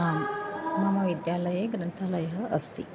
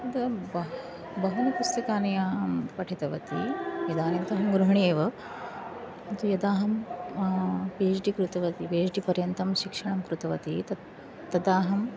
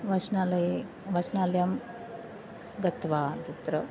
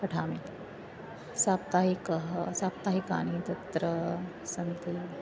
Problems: constant background noise